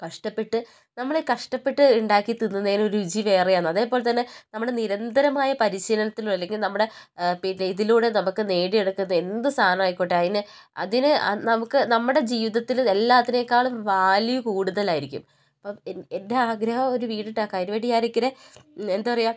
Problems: none marked